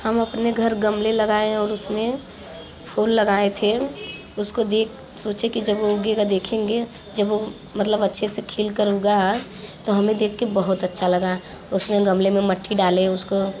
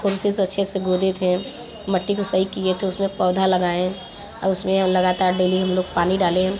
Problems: constant background noise, continuous background conversations